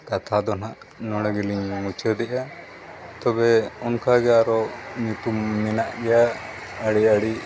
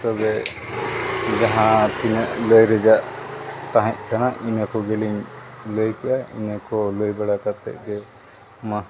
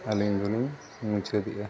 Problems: constant background noise, background conversations at intervals